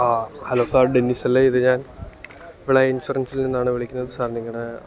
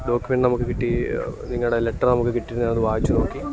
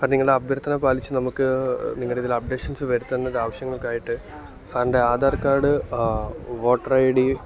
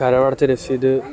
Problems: background conversations at intervals